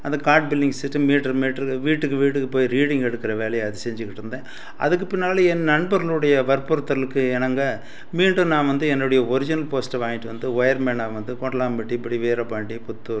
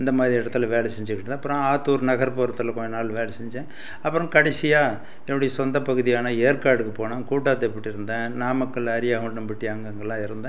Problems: none marked